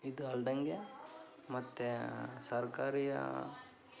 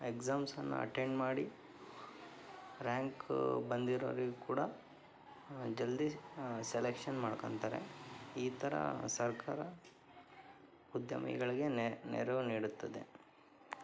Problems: background sounds at intervals